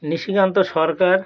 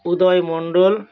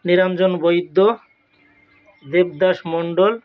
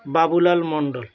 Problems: background sounds at intervals